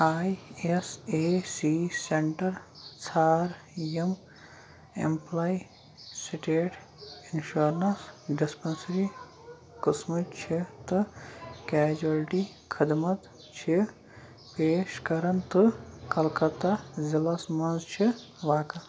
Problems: constant background noise, background conversations at intervals